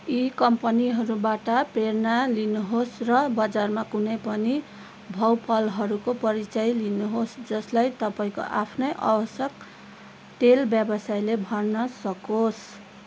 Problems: constant background noise